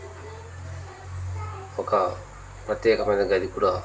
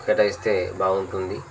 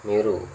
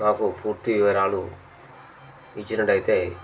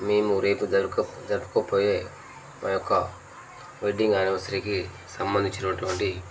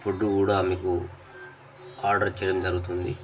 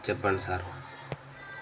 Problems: constant background noise, background conversations at intervals